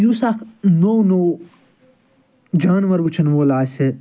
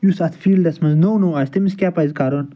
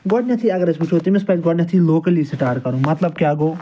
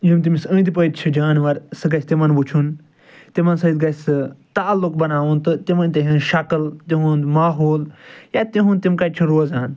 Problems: background sounds at intervals